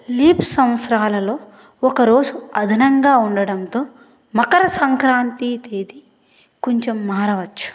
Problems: none marked